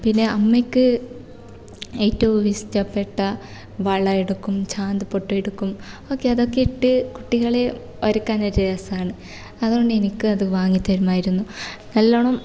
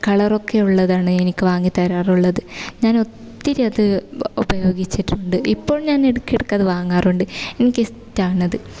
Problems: none marked